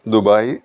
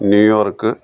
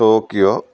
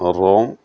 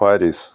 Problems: background sounds at intervals